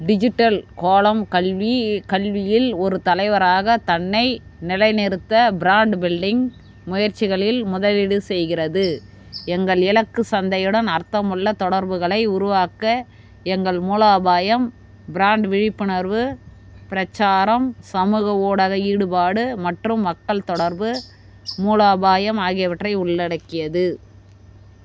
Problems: constant background noise